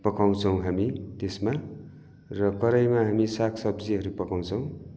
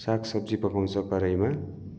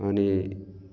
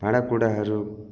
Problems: none marked